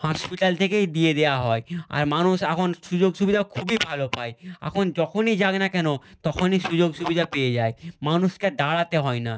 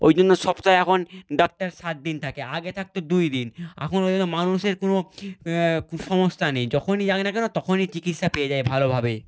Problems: none marked